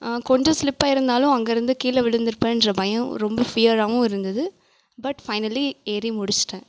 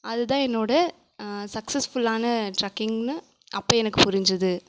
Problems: none marked